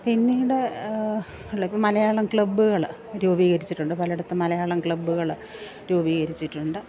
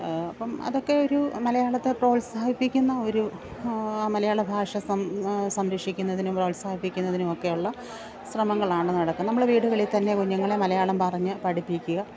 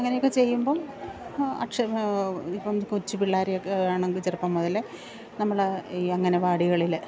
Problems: background sounds at intervals, background conversations at intervals, low volume